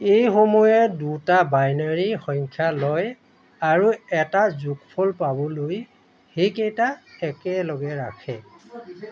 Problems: constant background noise, background conversations at intervals